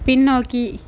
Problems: none marked